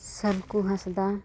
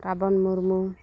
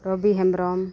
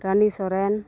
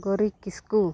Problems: continuous background conversations